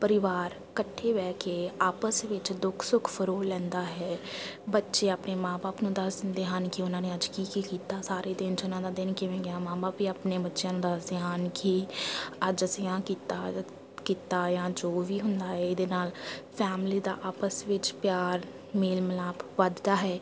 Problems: background sounds at intervals, background conversations at intervals